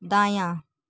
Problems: none marked